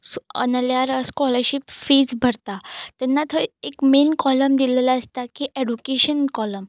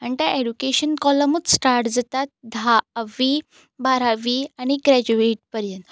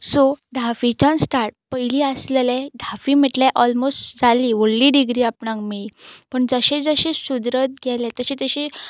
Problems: none marked